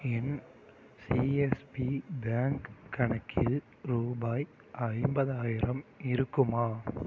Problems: background sounds at intervals